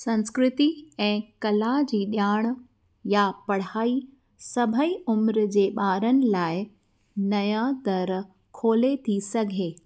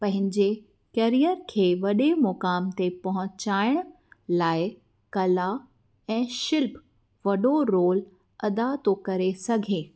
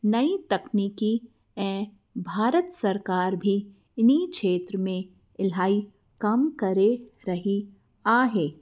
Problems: none marked